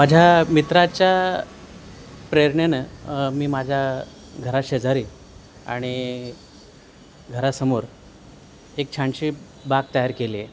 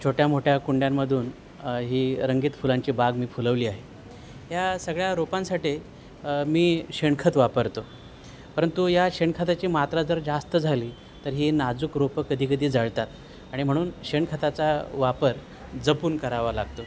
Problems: none marked